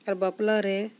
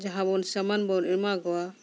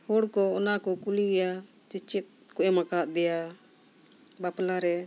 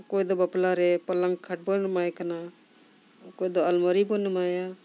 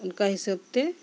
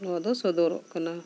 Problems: constant background noise